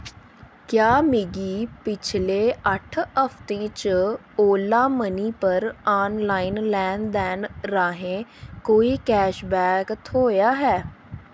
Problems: constant background noise